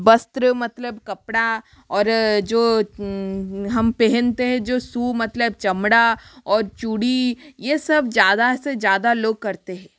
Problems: constant background noise